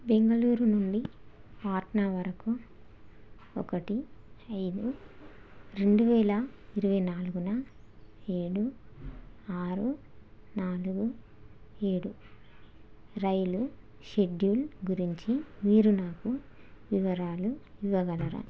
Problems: none marked